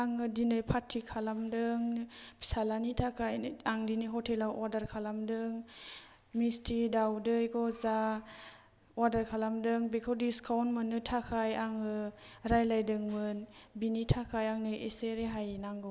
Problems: low volume